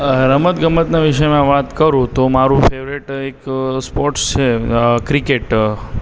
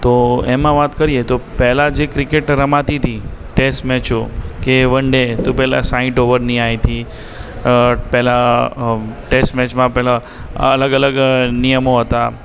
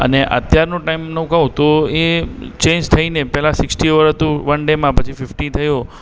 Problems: background sounds at intervals, echo